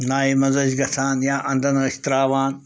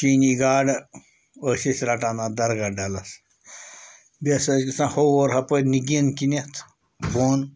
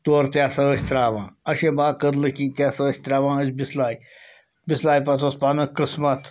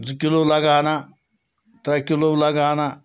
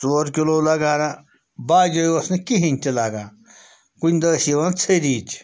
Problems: constant background noise